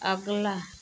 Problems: none marked